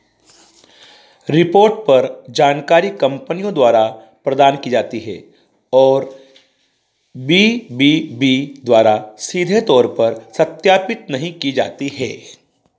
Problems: background sounds at intervals